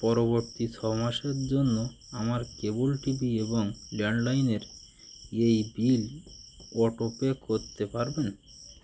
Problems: none marked